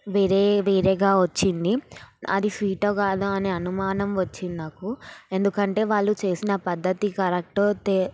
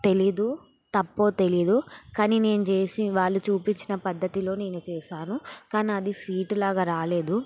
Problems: background sounds at intervals